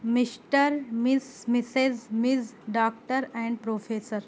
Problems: constant background noise